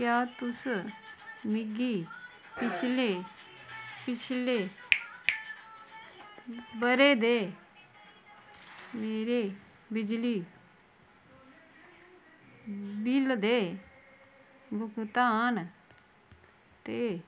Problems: constant background noise